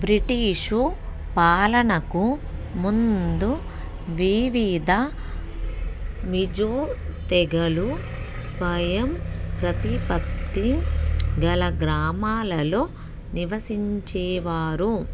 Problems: background sounds at intervals